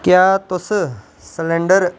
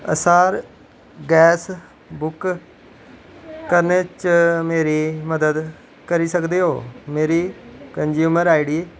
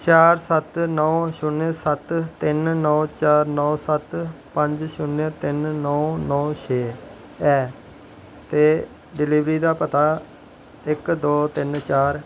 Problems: none marked